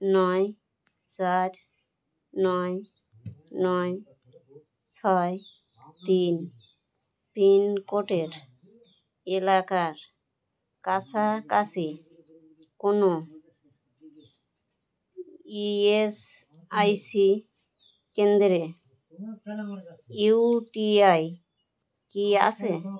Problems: background sounds at intervals